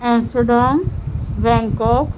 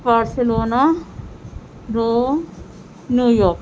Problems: constant background noise